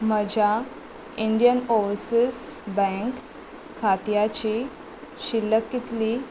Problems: constant background noise